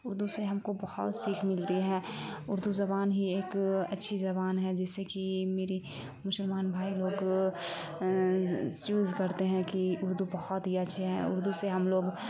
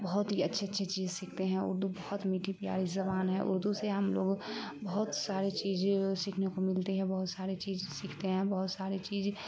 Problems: constant background noise